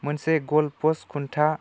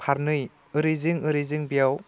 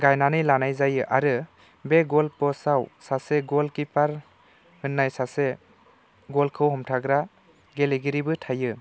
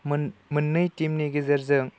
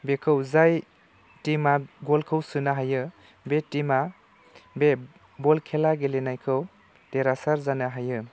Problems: none marked